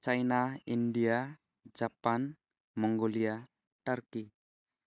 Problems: none marked